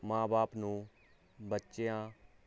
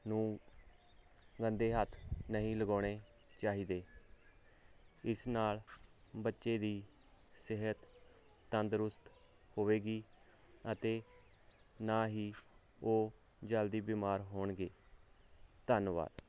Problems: background sounds at intervals